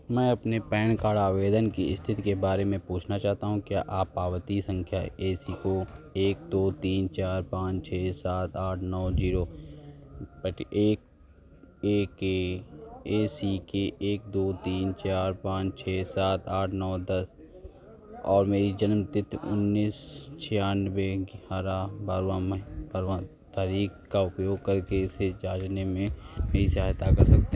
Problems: constant background noise